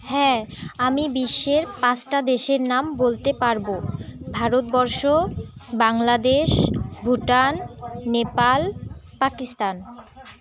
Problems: background sounds at intervals, continuous background conversations